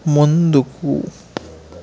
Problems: constant background noise